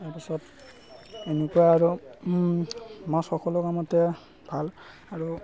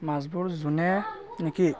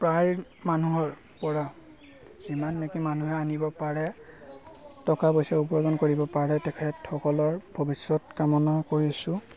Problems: constant background noise